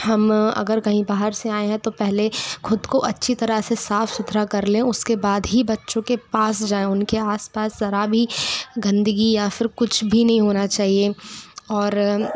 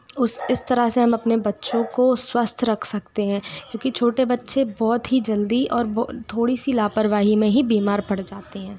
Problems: background conversations at intervals